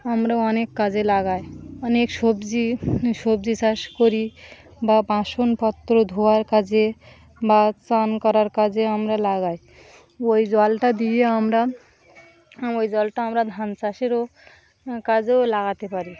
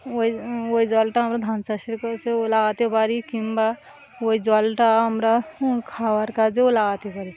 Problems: constant background noise